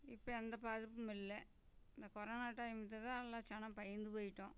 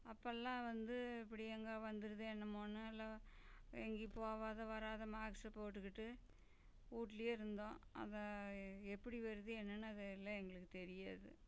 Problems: low volume